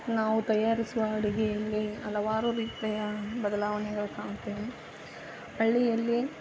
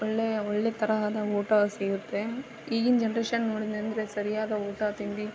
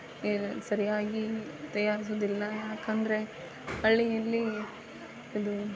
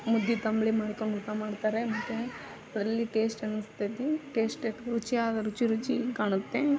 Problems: background sounds at intervals, background conversations at intervals